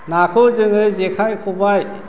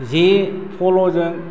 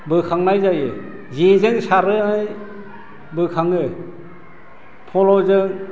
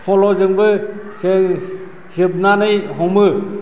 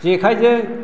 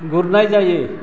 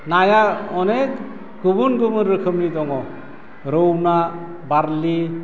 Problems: none marked